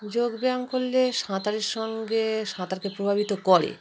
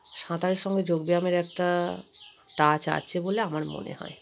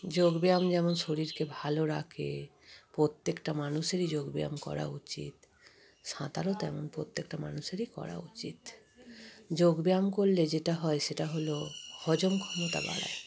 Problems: constant background noise